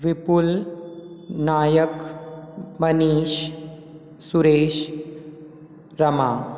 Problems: constant background noise, echo